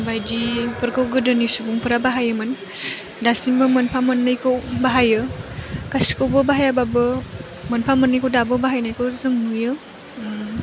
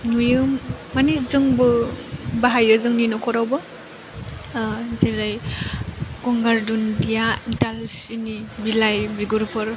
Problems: none marked